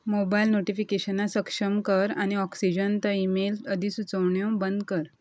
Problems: constant background noise